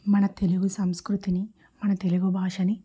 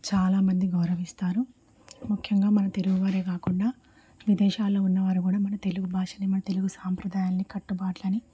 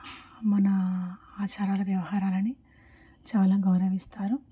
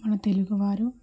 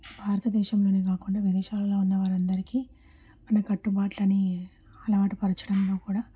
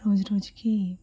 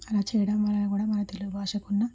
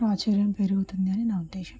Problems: low volume